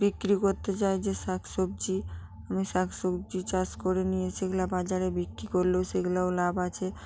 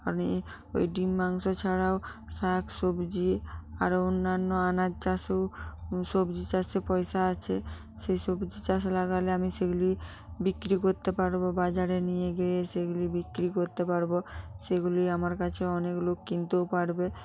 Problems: none marked